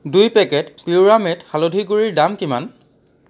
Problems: background sounds at intervals